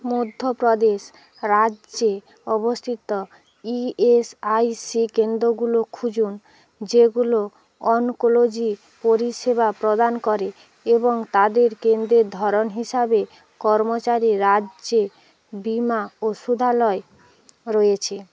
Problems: none marked